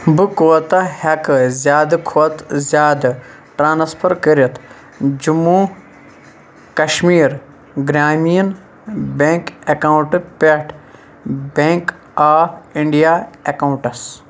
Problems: constant background noise